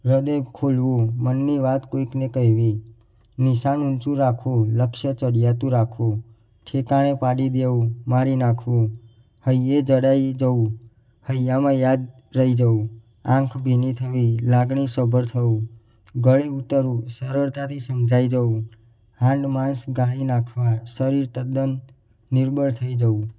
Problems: none marked